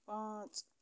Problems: none marked